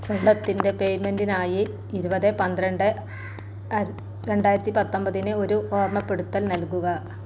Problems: constant background noise